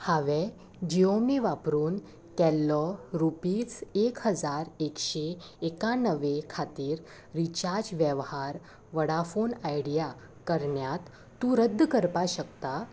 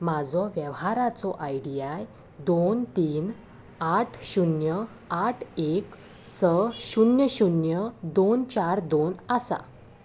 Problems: constant background noise